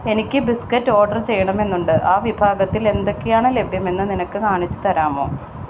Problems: constant background noise